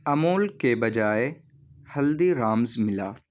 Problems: background sounds at intervals